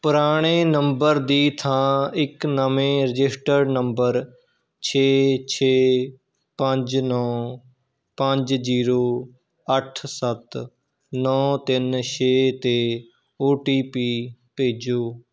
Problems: none marked